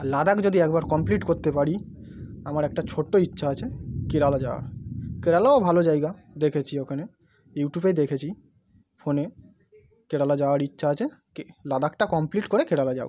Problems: none marked